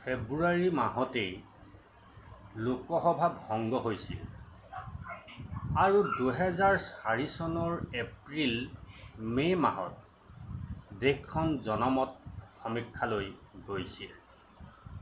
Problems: constant background noise